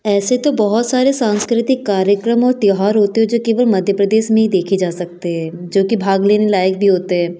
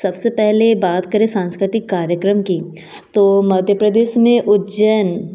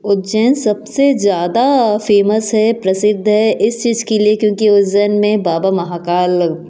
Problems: none marked